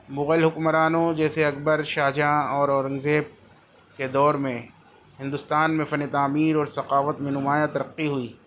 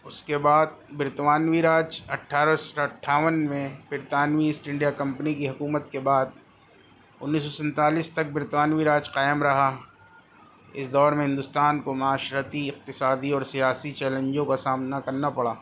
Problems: constant background noise